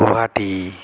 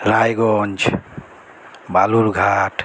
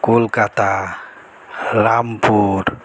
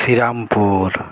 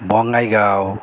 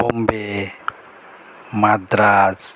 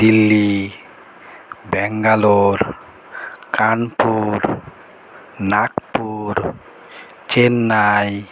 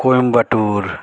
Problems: background conversations at intervals